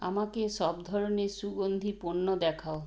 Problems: low volume